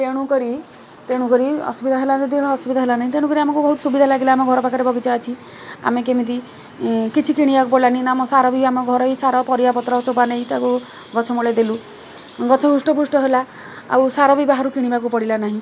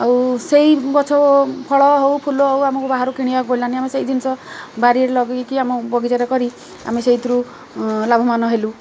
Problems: none marked